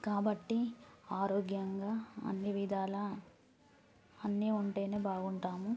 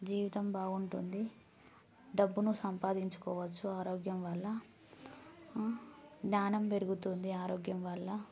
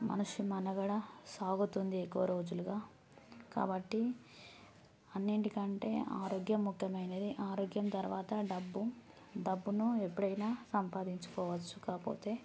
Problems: none marked